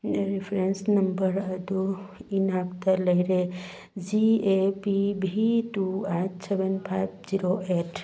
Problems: none marked